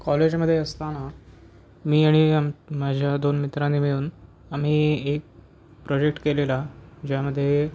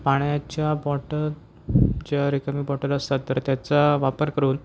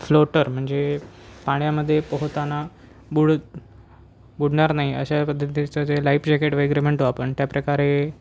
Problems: none marked